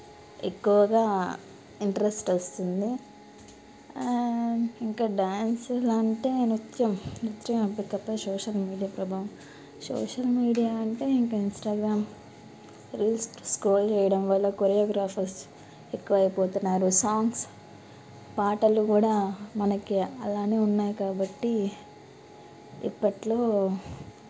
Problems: background sounds at intervals